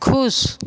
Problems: constant background noise